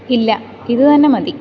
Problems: none marked